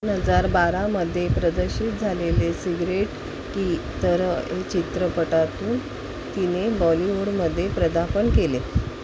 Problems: background conversations at intervals